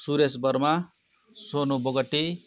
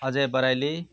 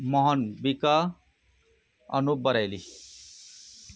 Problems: continuous background conversations